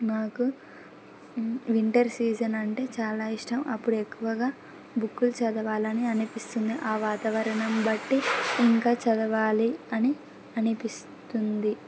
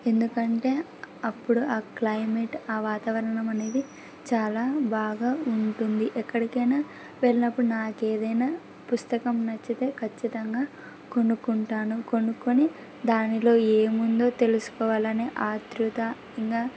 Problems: background sounds at intervals